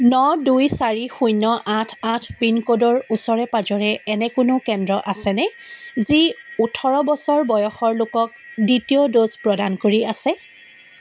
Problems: constant background noise